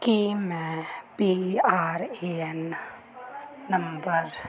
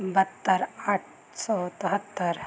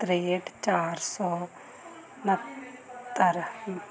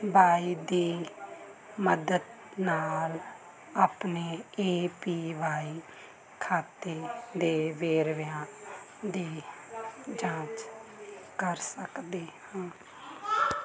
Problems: constant background noise